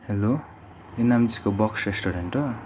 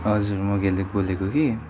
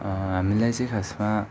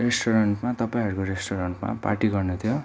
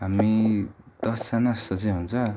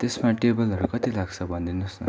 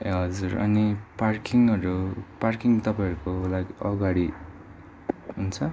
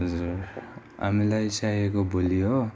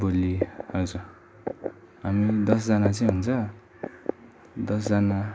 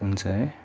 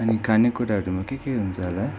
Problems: constant background noise